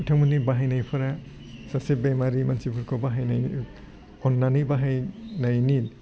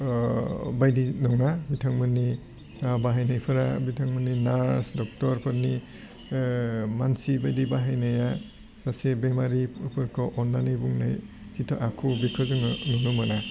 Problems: low volume